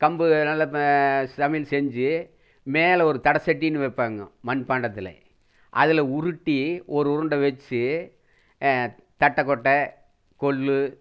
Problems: none marked